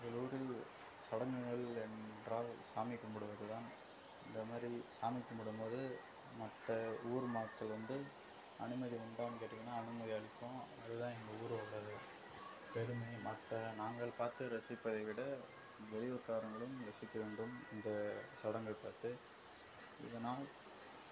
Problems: none marked